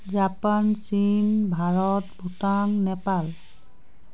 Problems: constant background noise